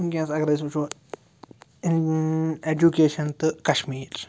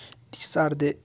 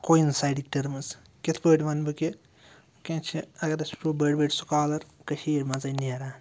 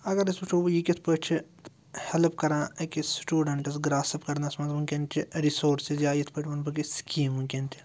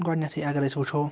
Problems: low volume